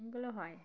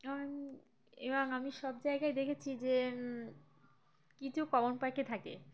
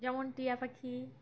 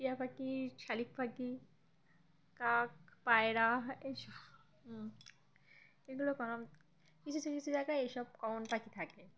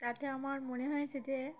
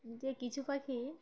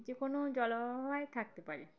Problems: constant background noise, background conversations at intervals